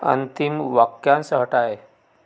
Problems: background sounds at intervals